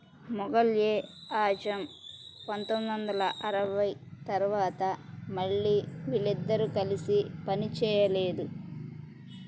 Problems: background sounds at intervals